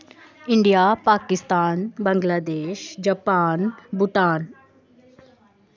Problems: constant background noise